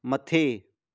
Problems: none marked